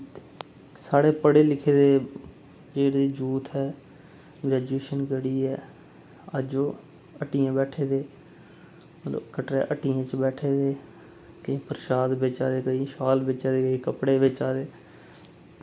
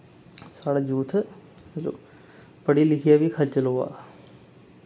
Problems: constant background noise